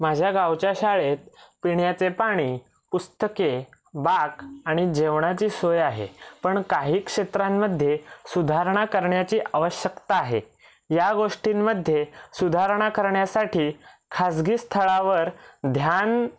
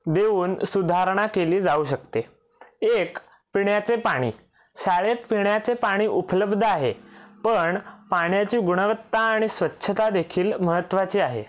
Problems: background sounds at intervals